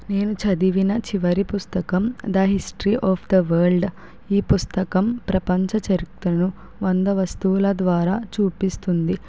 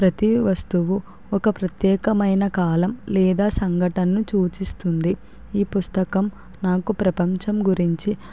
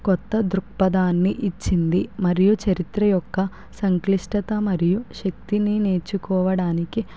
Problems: none marked